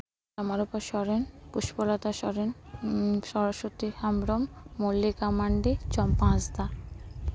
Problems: constant background noise, background conversations at intervals